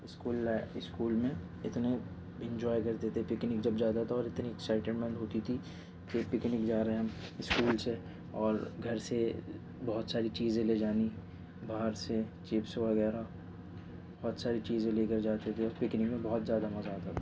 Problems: background sounds at intervals, low volume